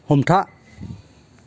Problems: none marked